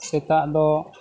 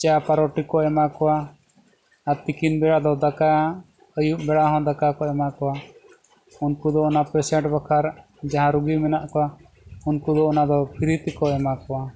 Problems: none marked